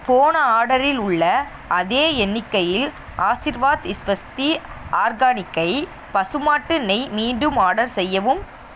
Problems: none marked